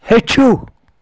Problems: constant background noise